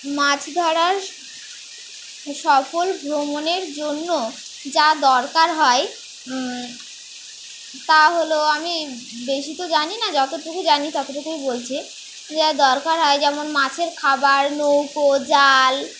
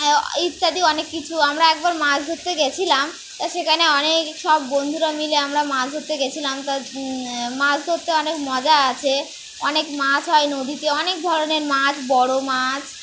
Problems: constant background noise